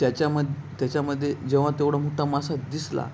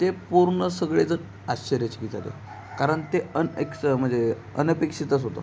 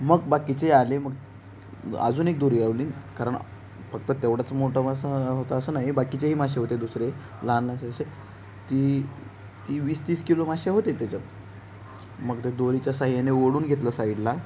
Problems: background sounds at intervals